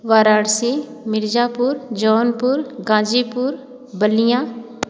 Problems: constant background noise